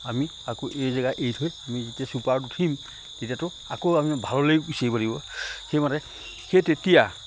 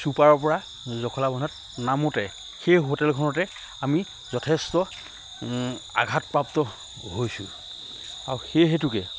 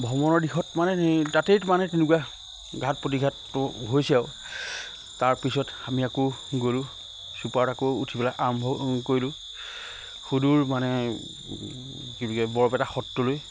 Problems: none marked